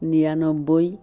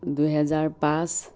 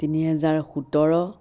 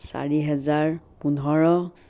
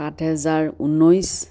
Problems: constant background noise